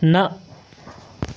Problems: none marked